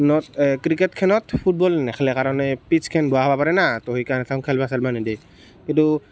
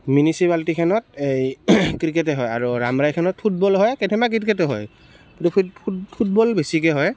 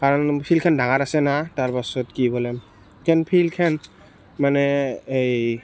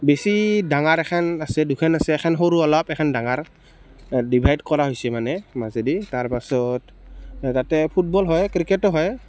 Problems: constant background noise